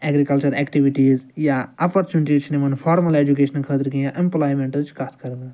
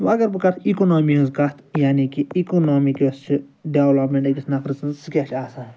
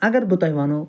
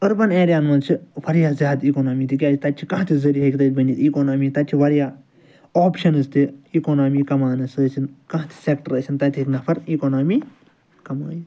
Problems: background sounds at intervals, background conversations at intervals